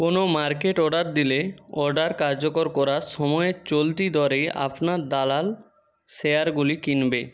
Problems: background sounds at intervals